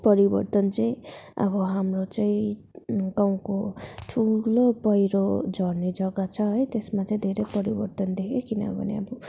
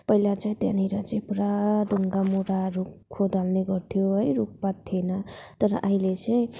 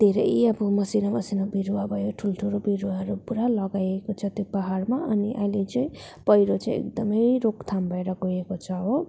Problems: background sounds at intervals